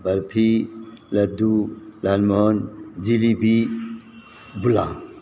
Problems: none marked